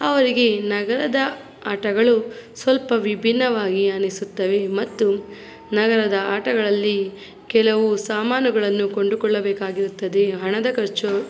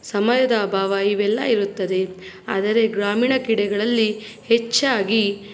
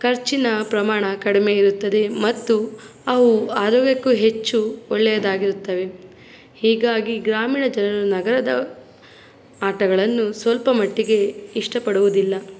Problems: background sounds at intervals